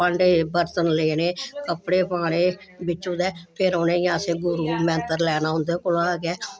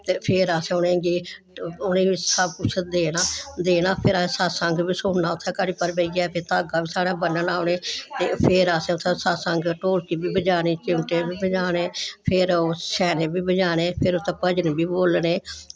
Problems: none marked